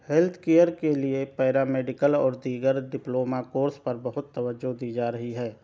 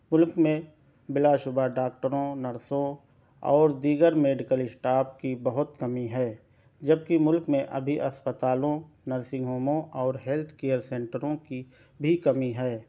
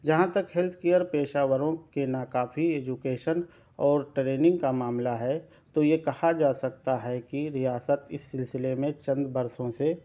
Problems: none marked